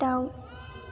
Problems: low volume